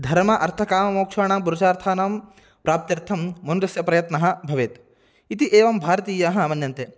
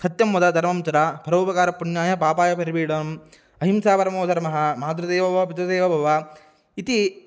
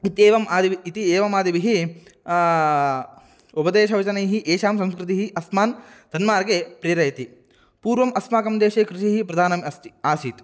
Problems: none marked